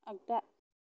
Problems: low volume